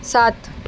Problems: constant background noise